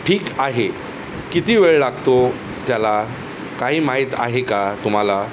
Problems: constant background noise